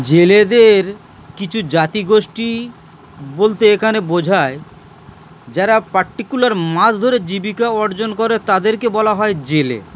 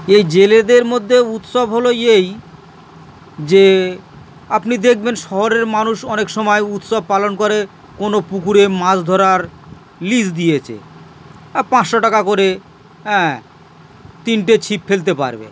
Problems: constant background noise